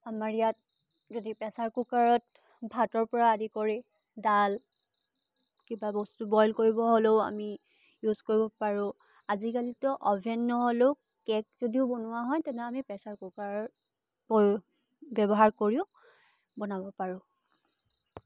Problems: constant background noise